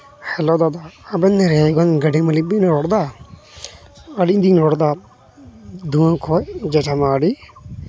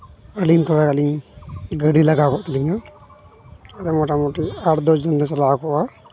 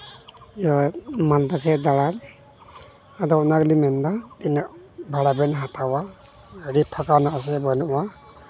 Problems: constant background noise, background conversations at intervals